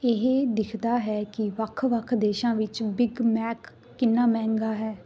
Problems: background sounds at intervals